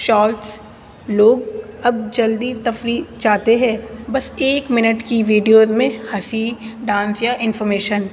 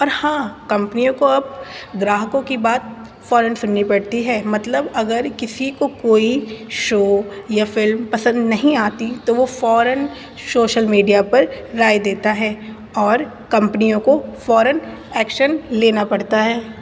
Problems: constant background noise